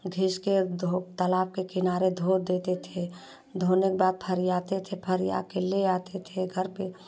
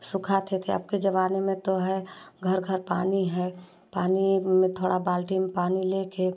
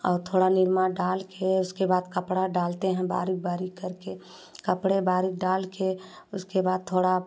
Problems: constant background noise